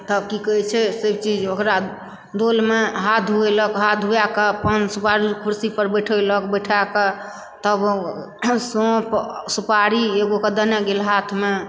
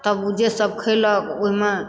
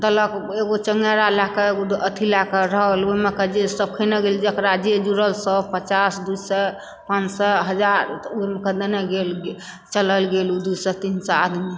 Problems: background sounds at intervals